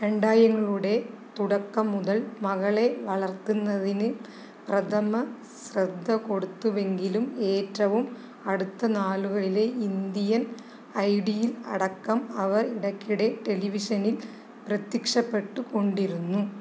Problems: constant background noise